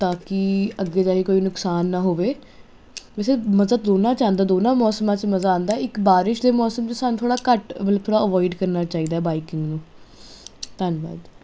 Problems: constant background noise